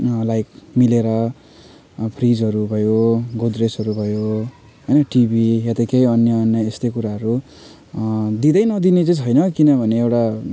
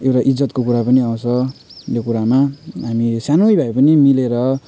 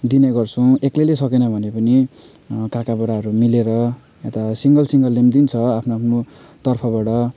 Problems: background sounds at intervals